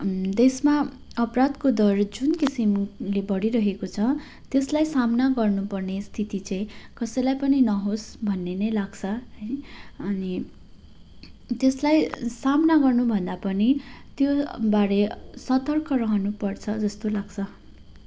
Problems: background sounds at intervals